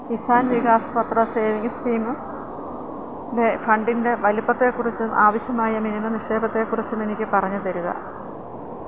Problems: constant background noise